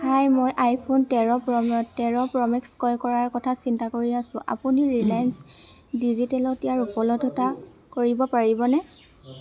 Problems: none marked